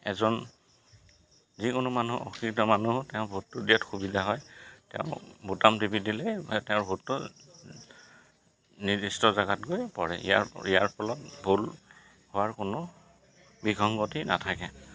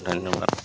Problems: constant background noise, background conversations at intervals